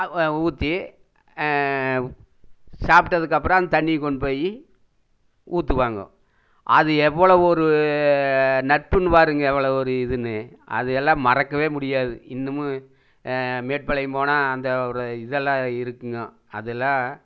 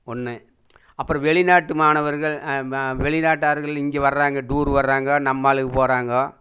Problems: none marked